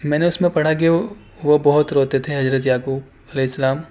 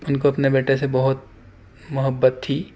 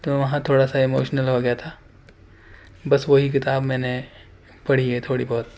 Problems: constant background noise